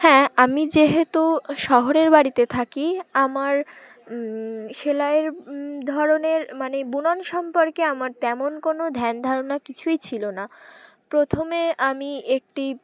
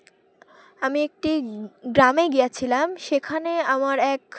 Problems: constant background noise, continuous background conversations